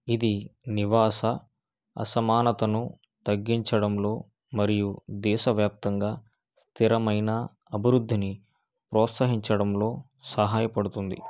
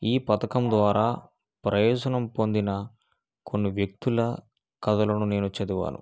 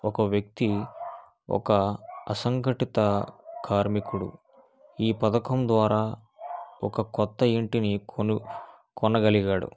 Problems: none marked